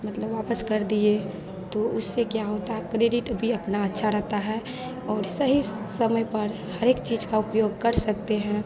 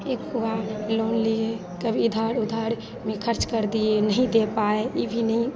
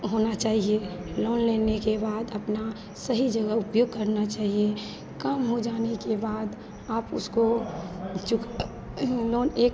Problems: continuous background conversations